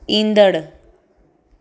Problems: constant background noise, echo